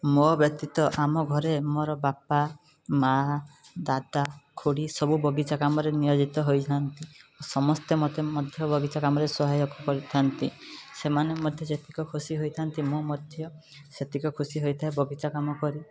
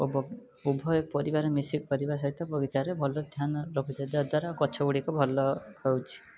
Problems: background sounds at intervals